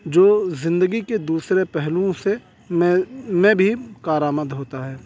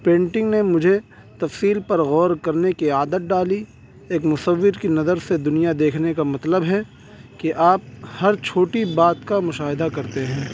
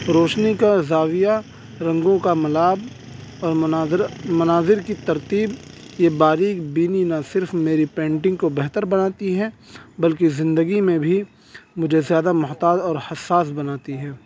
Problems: constant background noise